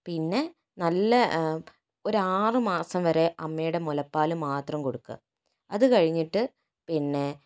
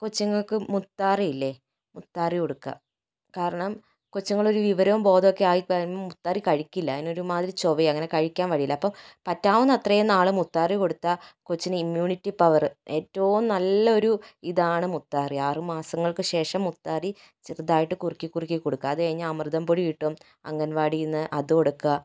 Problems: none marked